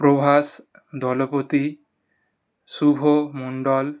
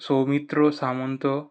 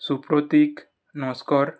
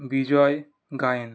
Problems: background sounds at intervals